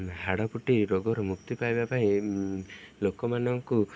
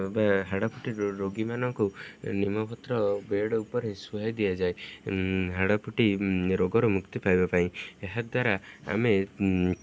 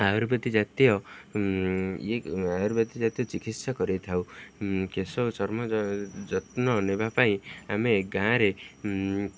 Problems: none marked